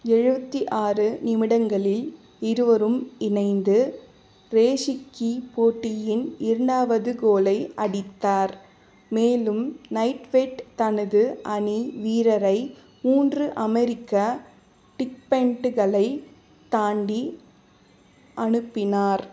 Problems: constant background noise